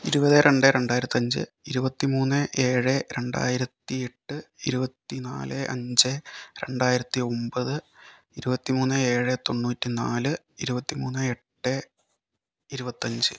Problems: none marked